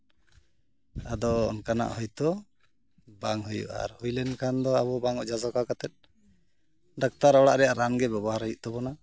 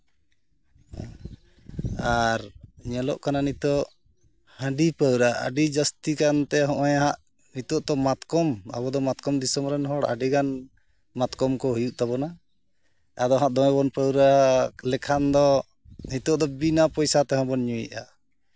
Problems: background sounds at intervals